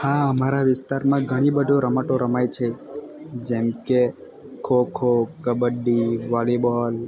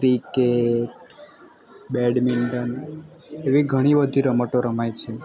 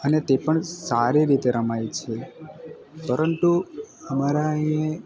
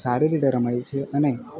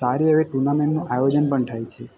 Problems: constant background noise